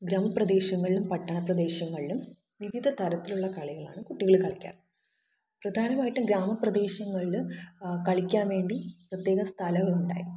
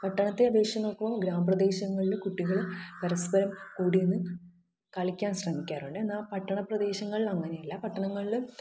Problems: background sounds at intervals, low volume